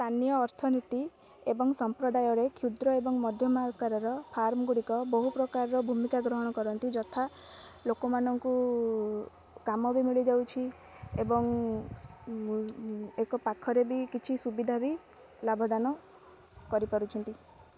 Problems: low volume